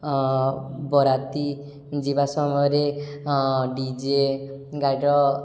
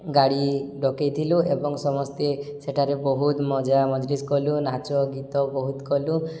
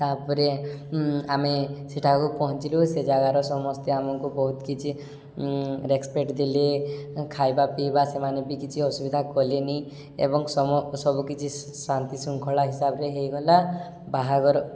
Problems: none marked